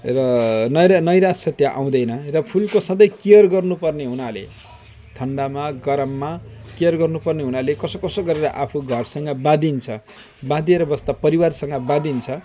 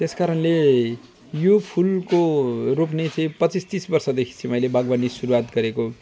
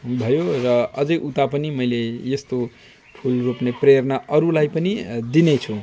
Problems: none marked